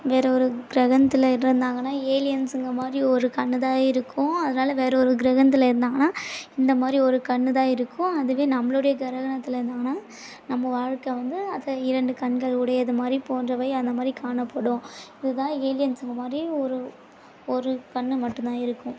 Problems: background sounds at intervals